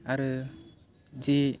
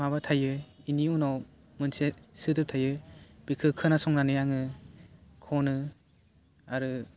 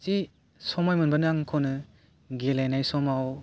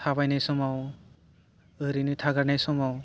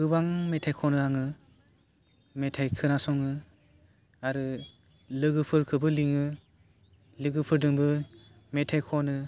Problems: none marked